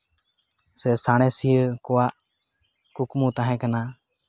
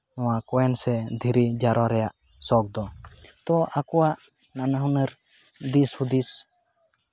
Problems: constant background noise